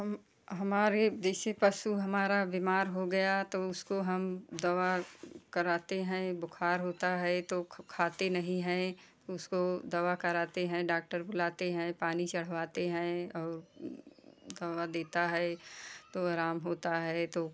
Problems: constant background noise